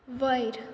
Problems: constant background noise